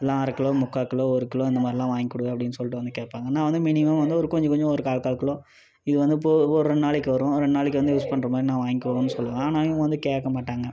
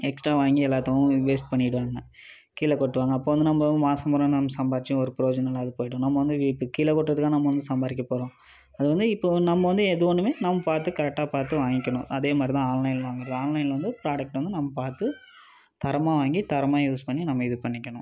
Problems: continuous background conversations